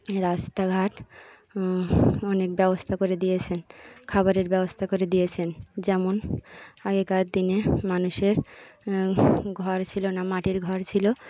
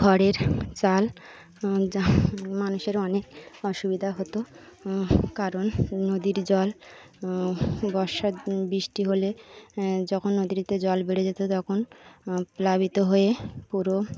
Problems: constant background noise, continuous background conversations